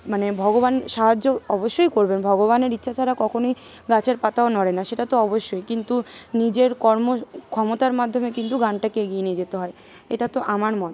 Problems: constant background noise, continuous background conversations